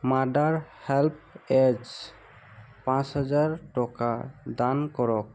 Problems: constant background noise